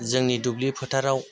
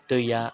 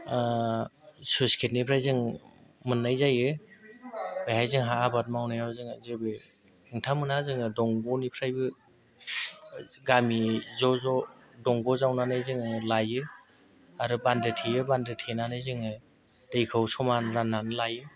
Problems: constant background noise